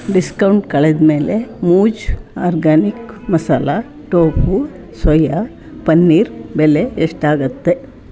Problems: background sounds at intervals